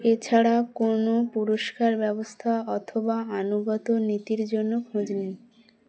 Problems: none marked